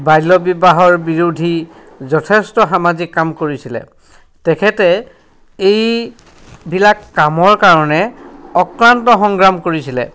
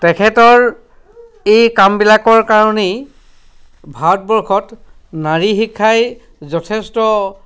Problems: background sounds at intervals, background conversations at intervals